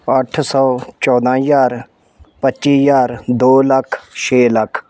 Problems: background sounds at intervals